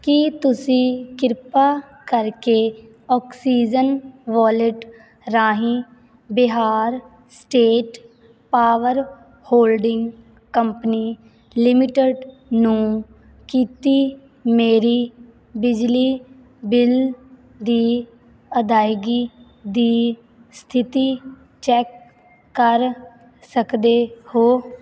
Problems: constant background noise